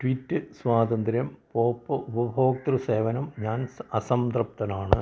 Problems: low volume